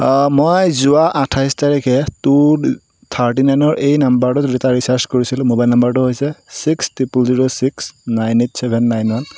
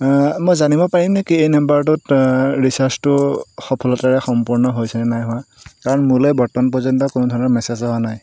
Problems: constant background noise